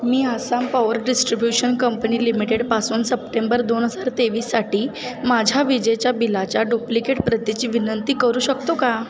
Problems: background sounds at intervals